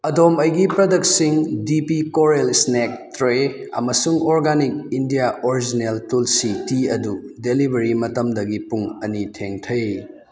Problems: background conversations at intervals